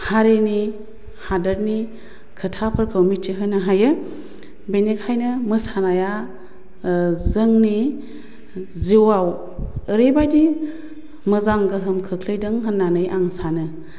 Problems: none marked